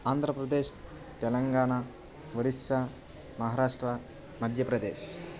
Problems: constant background noise